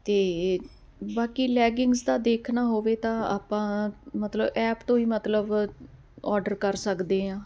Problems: constant background noise